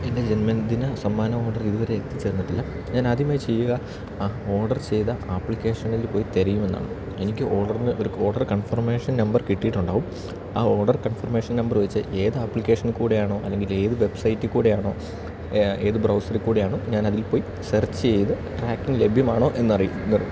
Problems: constant background noise